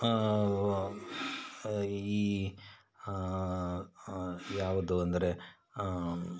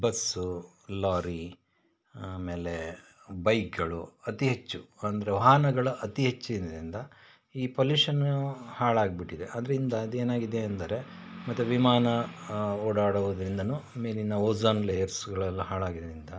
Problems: background sounds at intervals